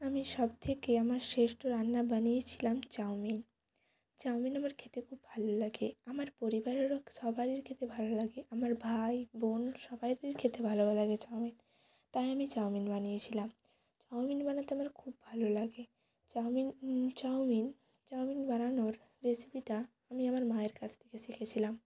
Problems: background sounds at intervals